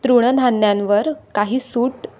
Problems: none marked